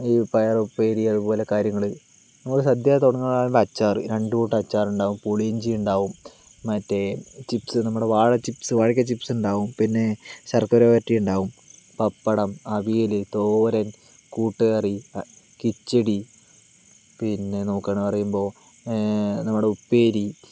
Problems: background sounds at intervals